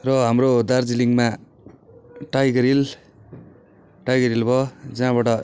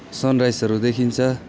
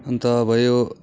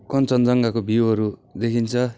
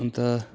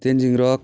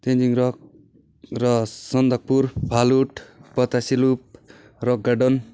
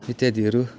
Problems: constant background noise